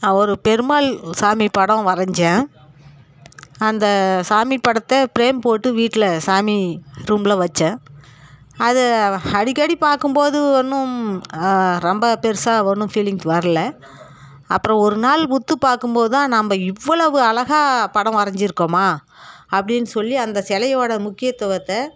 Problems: none marked